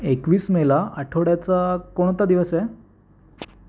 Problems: background sounds at intervals